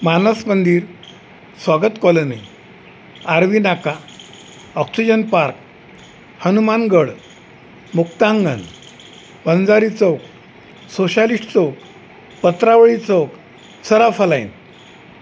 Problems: constant background noise